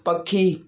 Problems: none marked